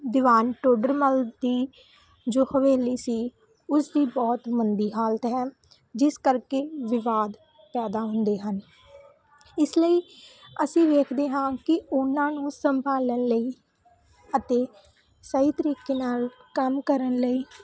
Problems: constant background noise